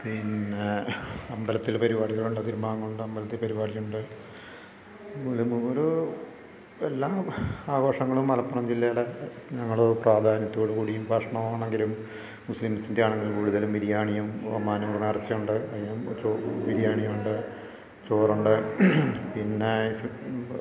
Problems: background conversations at intervals